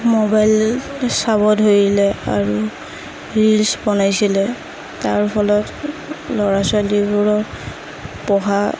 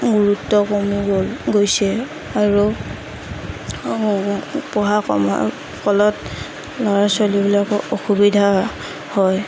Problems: constant background noise, background conversations at intervals